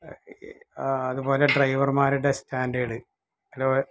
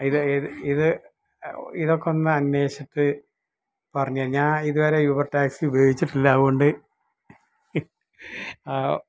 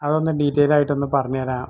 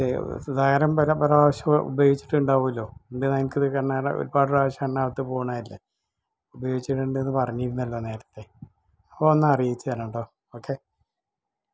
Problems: background sounds at intervals